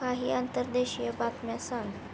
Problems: constant background noise